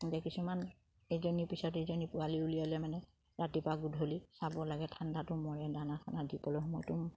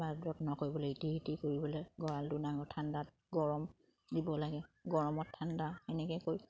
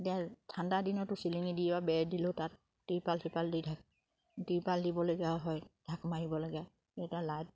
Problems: background sounds at intervals, background conversations at intervals